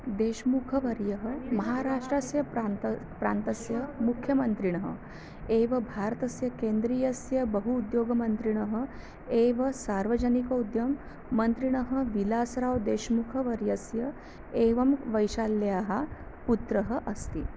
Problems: low volume